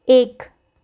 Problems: none marked